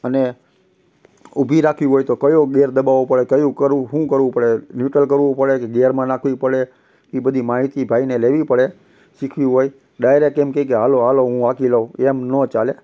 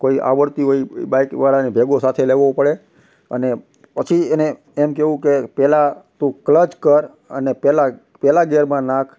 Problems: constant background noise